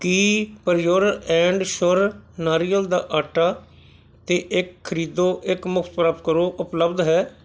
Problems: none marked